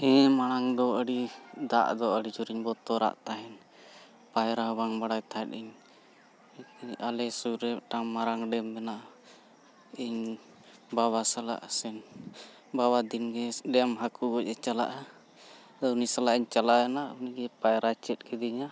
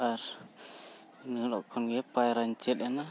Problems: none marked